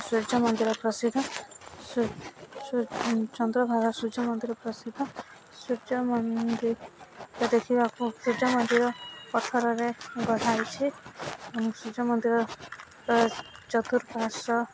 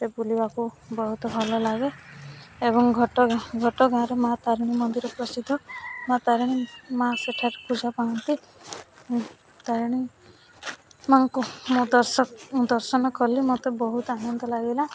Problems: none marked